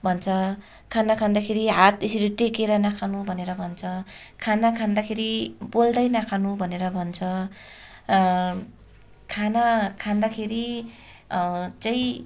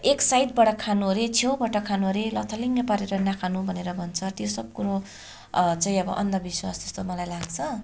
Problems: continuous background conversations